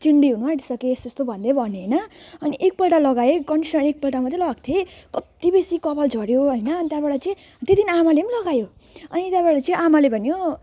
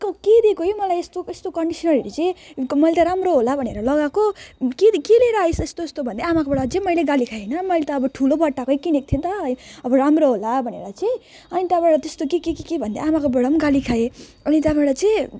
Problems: none marked